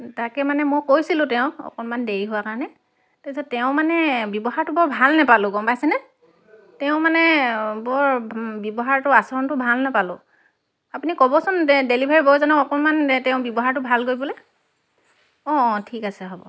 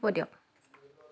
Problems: none marked